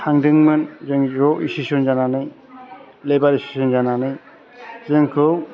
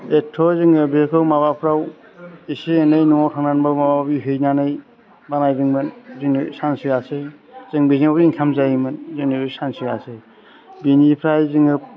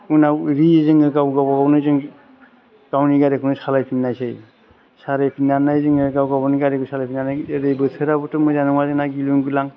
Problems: constant background noise